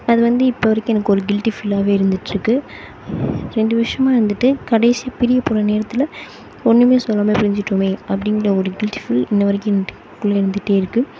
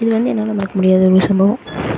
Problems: background sounds at intervals